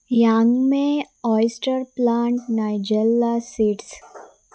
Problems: none marked